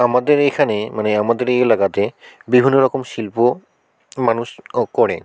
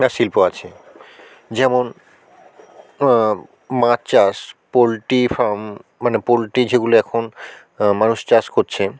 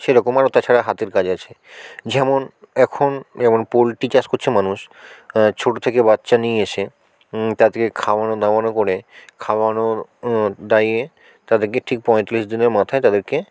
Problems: constant background noise, background conversations at intervals